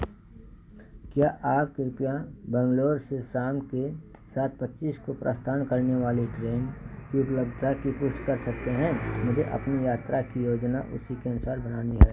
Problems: constant background noise